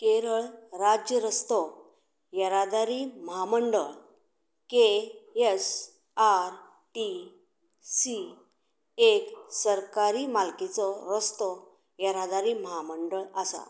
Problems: none marked